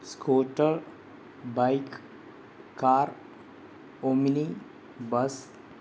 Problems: constant background noise